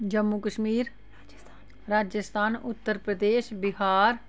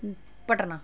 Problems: background sounds at intervals, background conversations at intervals